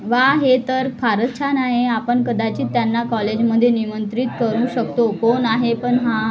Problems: continuous background conversations